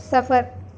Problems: none marked